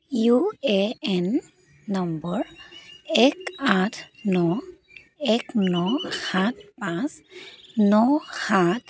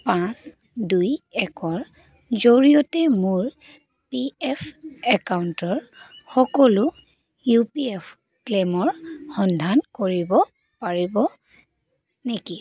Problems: constant background noise